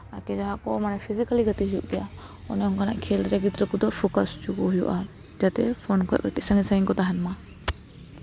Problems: background conversations at intervals